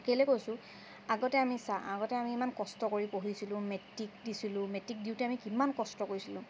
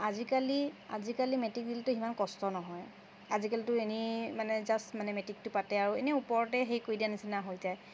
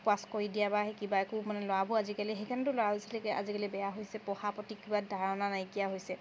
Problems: constant background noise, background conversations at intervals